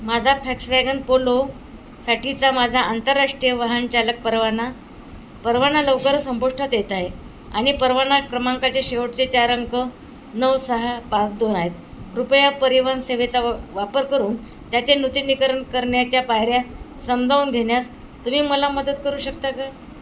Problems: constant background noise